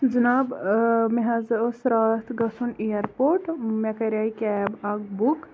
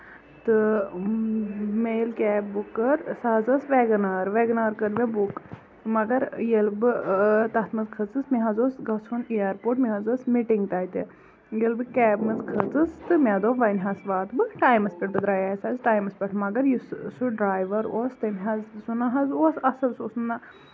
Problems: constant background noise